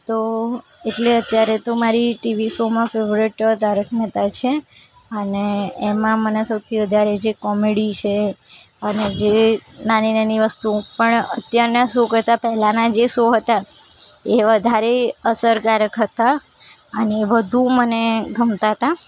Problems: background sounds at intervals